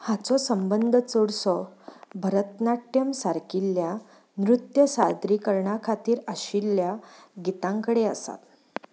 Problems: background sounds at intervals